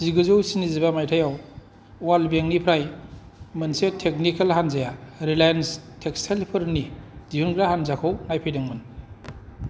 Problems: none marked